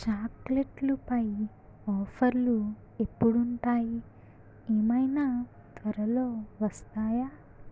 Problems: low volume